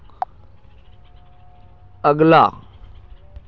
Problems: constant background noise, continuous background conversations